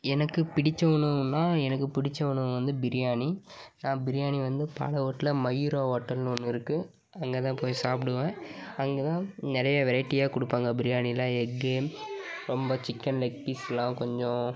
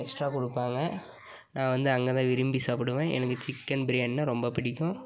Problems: none marked